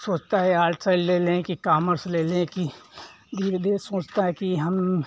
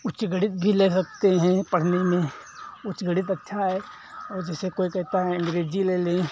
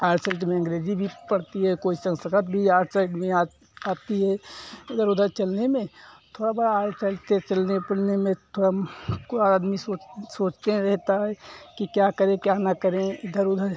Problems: background sounds at intervals